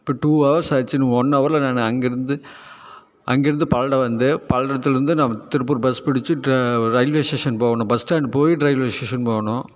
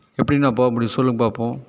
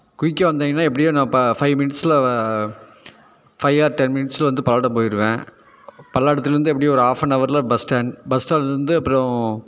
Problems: none marked